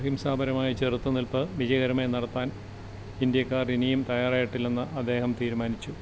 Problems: constant background noise